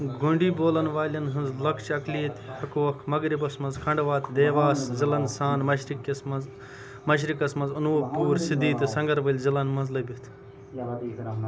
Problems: background sounds at intervals, background conversations at intervals